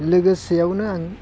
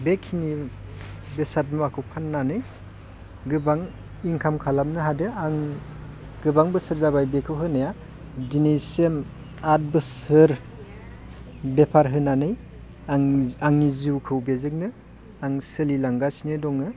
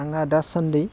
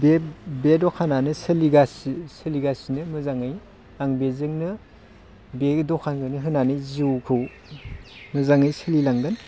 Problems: constant background noise